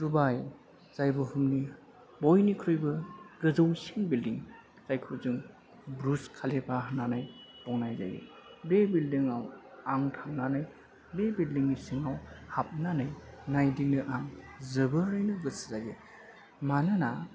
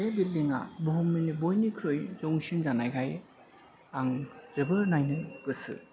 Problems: constant background noise